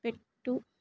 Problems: low volume